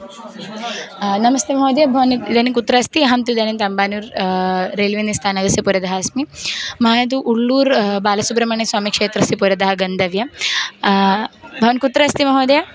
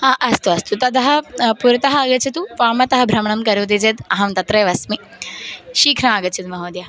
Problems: none marked